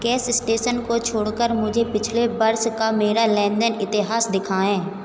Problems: none marked